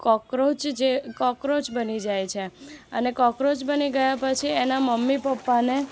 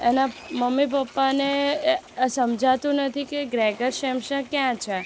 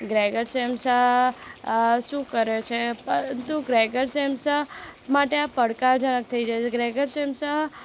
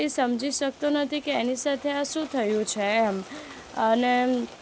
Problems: none marked